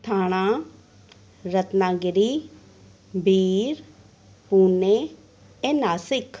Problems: none marked